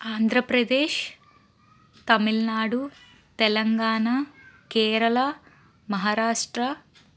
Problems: none marked